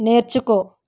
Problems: none marked